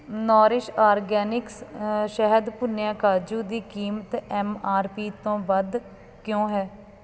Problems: none marked